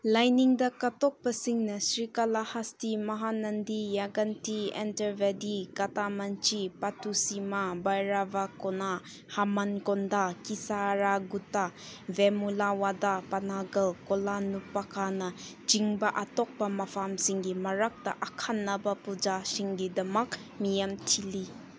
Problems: none marked